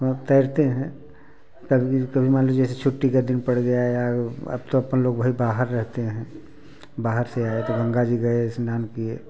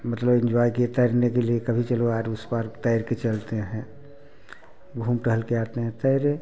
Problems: constant background noise, background conversations at intervals